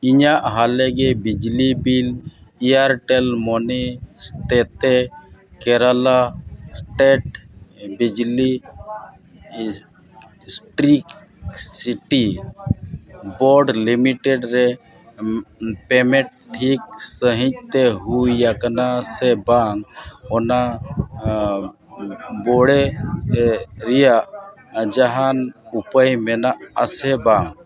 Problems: constant background noise, continuous background conversations